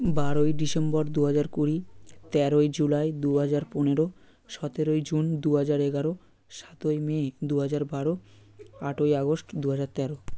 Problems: background conversations at intervals